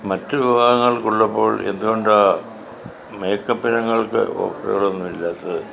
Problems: constant background noise